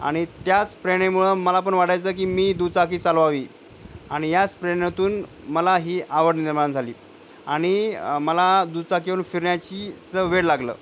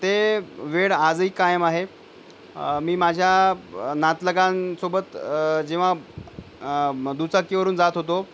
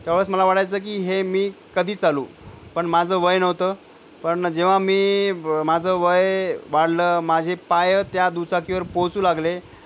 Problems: none marked